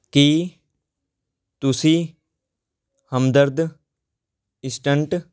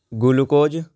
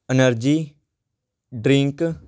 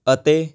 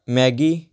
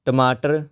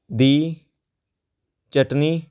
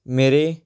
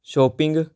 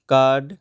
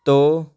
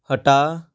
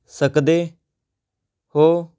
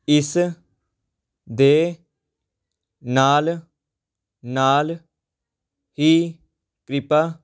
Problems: background sounds at intervals